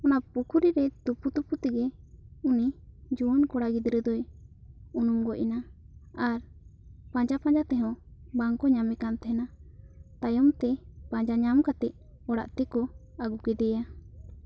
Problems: none marked